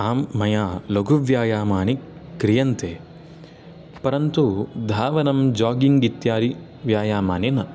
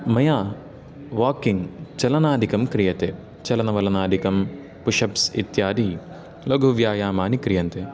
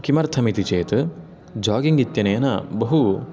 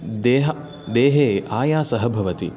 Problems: background sounds at intervals, echo